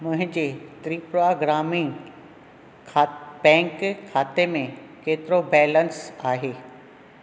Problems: none marked